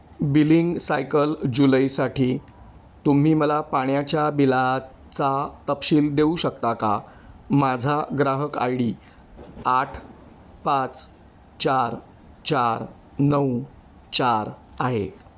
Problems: constant background noise